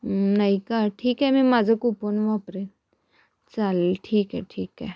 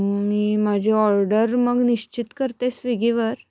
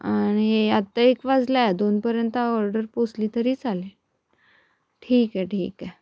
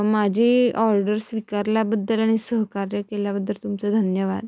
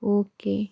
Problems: background sounds at intervals